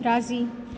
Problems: constant background noise